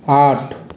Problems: constant background noise